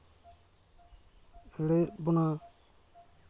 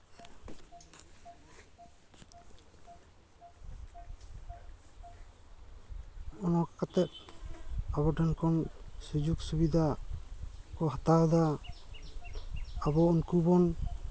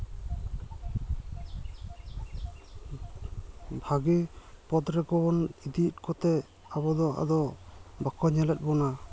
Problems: none marked